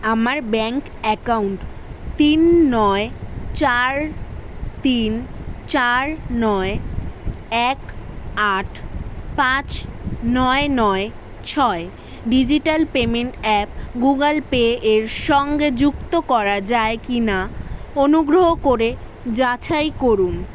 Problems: constant background noise